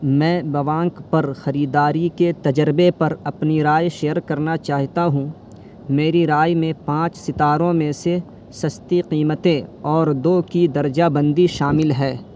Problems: constant background noise